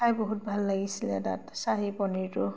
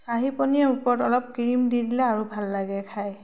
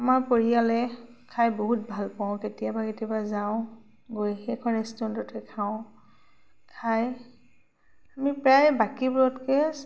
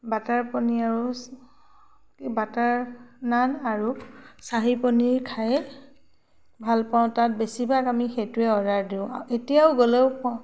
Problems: none marked